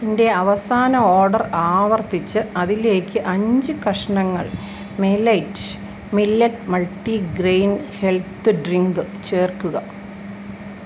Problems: constant background noise